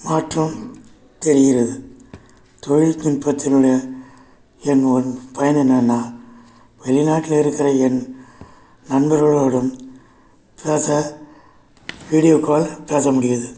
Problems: none marked